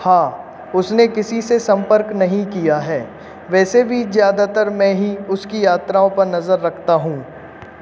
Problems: constant background noise